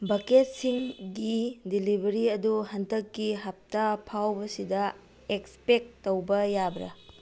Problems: low volume